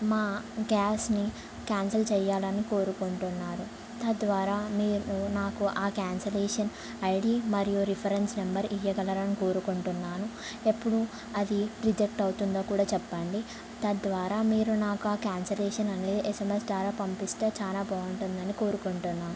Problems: low volume